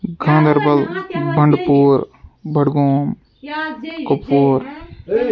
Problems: background sounds at intervals, continuous background conversations